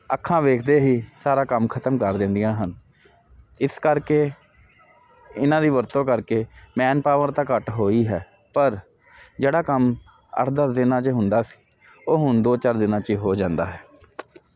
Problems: constant background noise